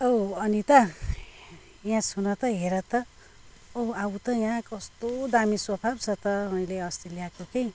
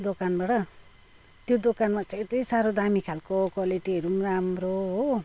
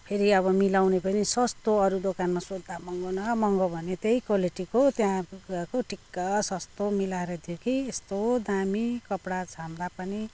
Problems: none marked